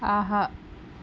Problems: low volume